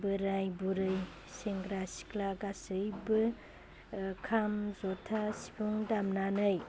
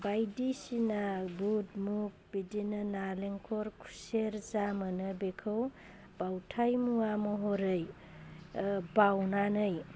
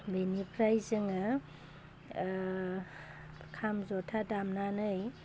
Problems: constant background noise